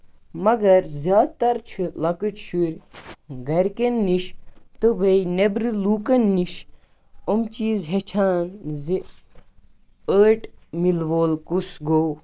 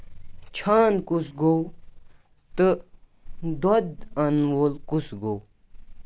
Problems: none marked